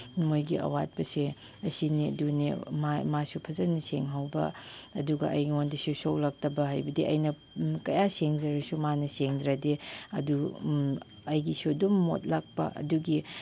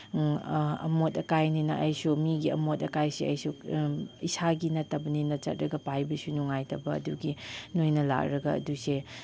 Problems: background sounds at intervals